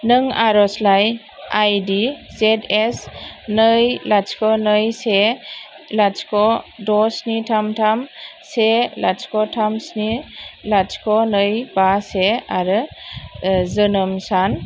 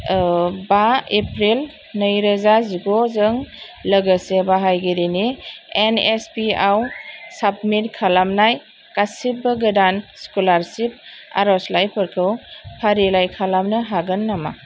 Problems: constant background noise